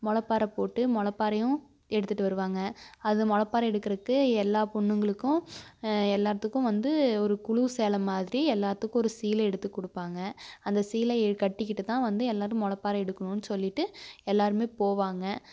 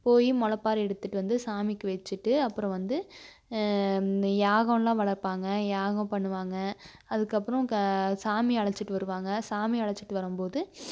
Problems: none marked